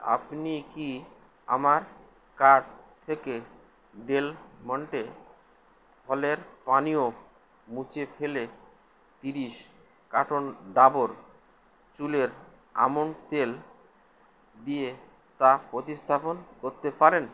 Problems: constant background noise